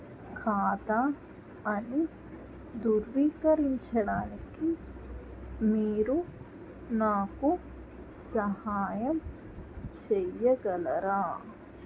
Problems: constant background noise